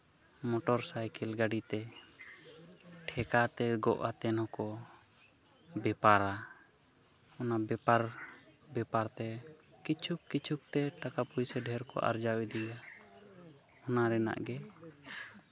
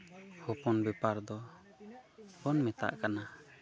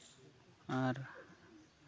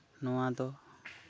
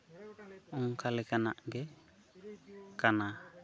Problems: background conversations at intervals